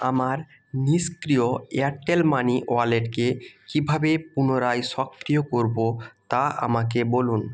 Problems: continuous background conversations